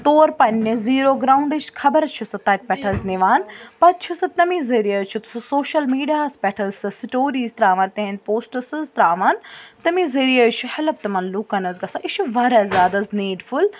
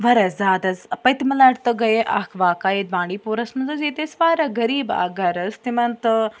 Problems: background sounds at intervals, background conversations at intervals